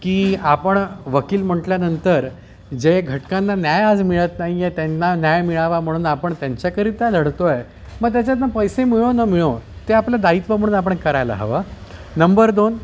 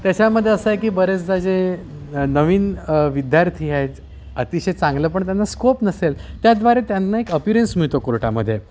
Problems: constant background noise, continuous background conversations